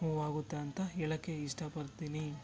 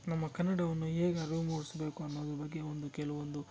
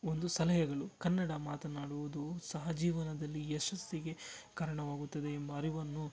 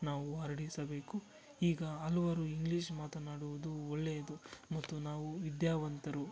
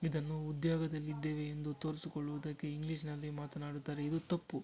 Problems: constant background noise